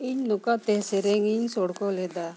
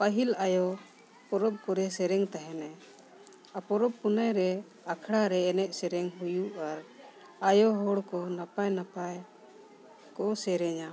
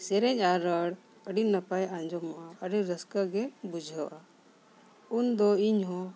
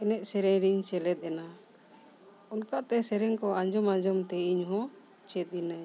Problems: background sounds at intervals